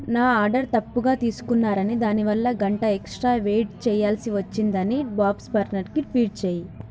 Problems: none marked